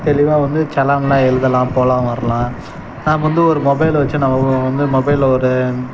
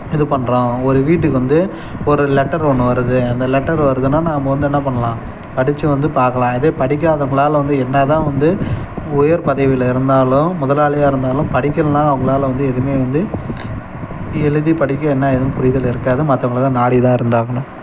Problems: background sounds at intervals